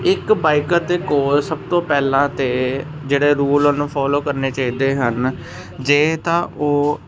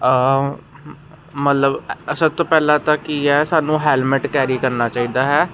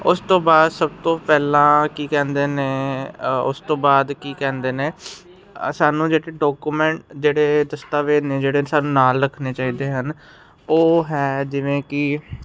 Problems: constant background noise